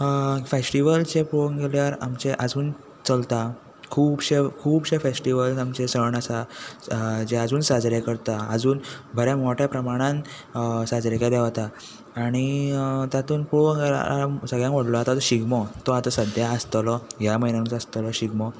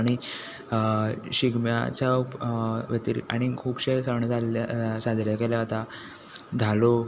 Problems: none marked